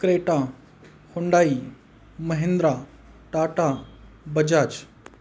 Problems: constant background noise